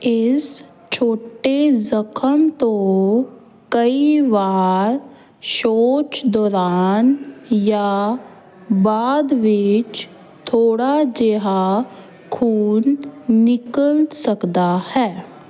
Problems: background conversations at intervals